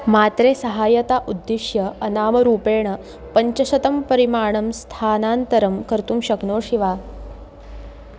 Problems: constant background noise